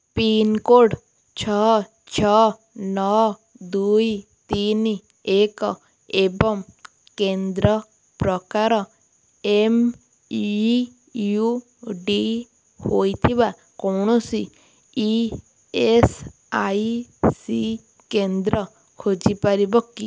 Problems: none marked